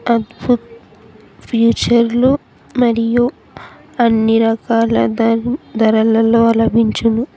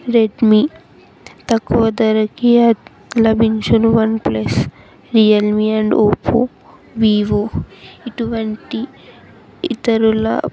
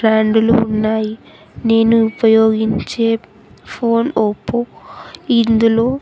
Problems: continuous background conversations